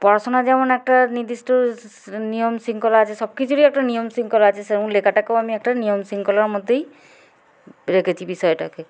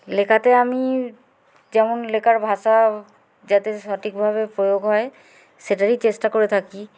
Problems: none marked